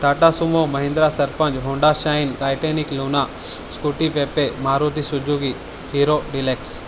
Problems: none marked